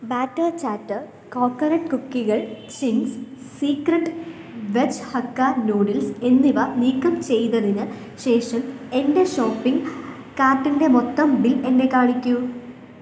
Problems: background sounds at intervals